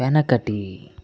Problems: none marked